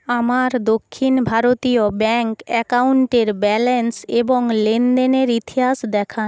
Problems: constant background noise